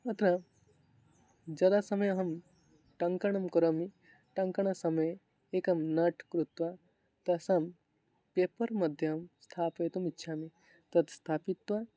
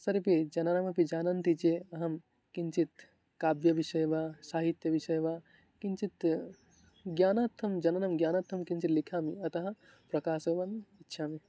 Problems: background conversations at intervals